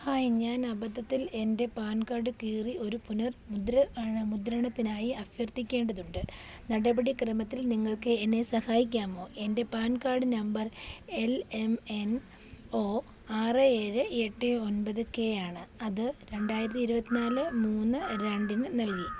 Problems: background sounds at intervals